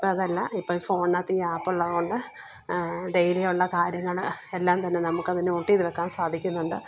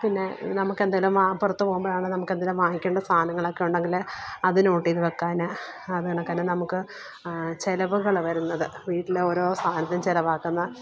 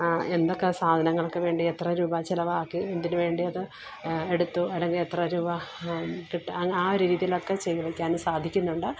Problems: background sounds at intervals, low volume